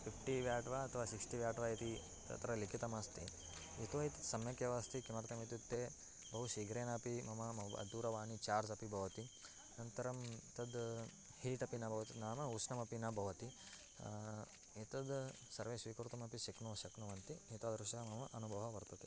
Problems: constant background noise, low volume